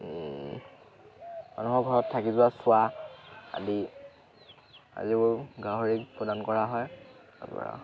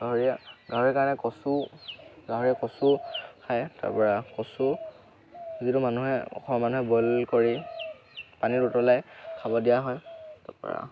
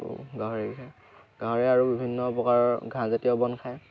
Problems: constant background noise, background conversations at intervals